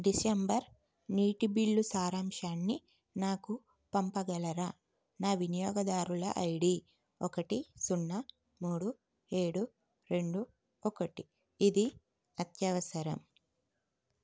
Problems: none marked